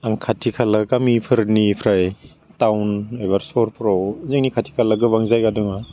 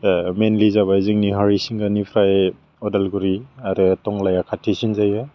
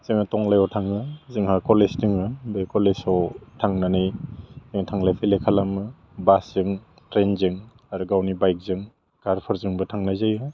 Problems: low volume